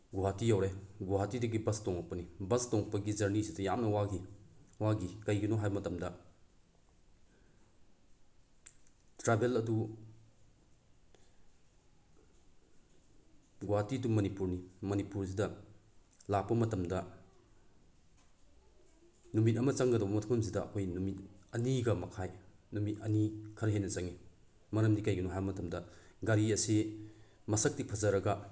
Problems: none marked